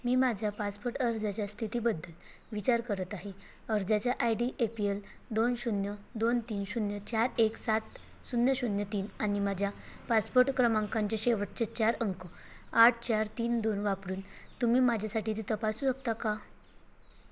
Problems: constant background noise